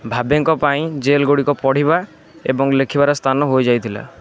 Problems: constant background noise